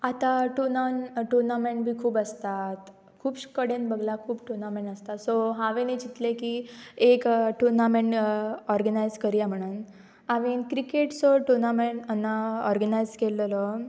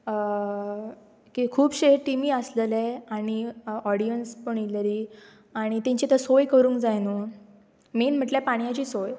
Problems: none marked